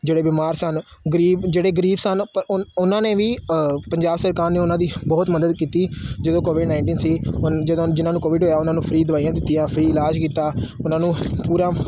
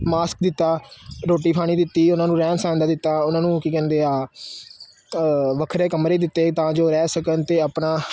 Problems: none marked